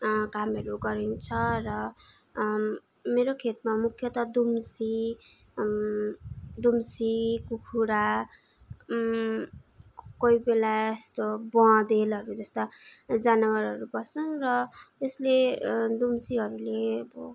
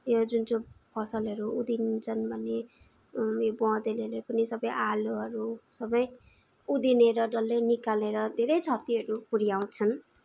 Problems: background sounds at intervals